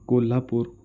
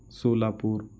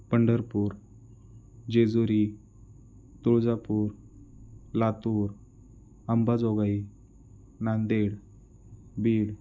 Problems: background sounds at intervals